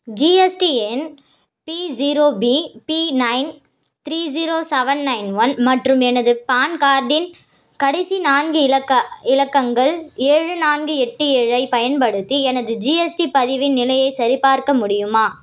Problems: none marked